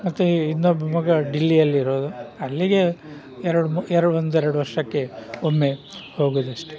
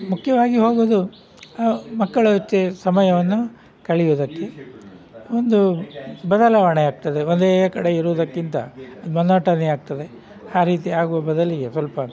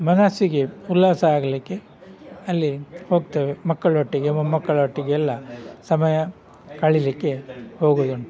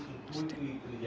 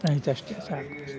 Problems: background sounds at intervals